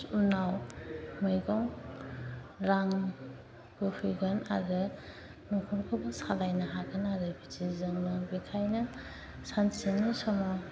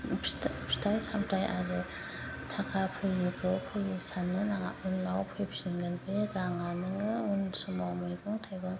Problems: none marked